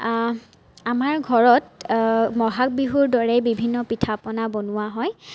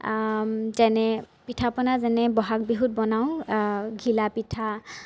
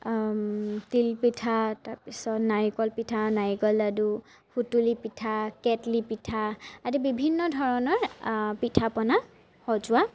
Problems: none marked